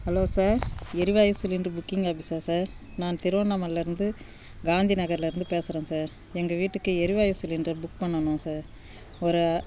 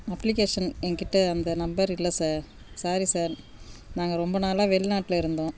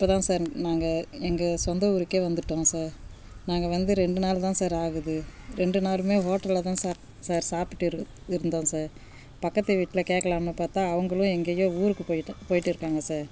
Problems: background sounds at intervals